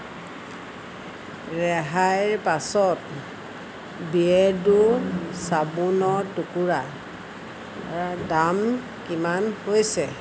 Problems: constant background noise